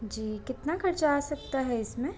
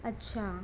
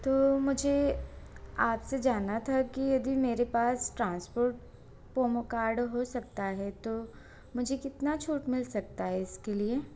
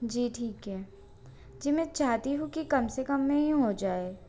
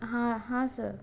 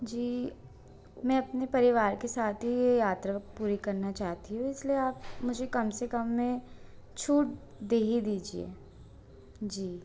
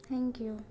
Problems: none marked